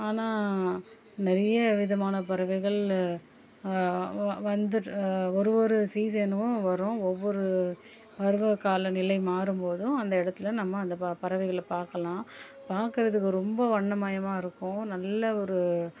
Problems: background sounds at intervals